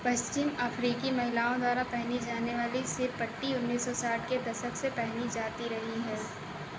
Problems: constant background noise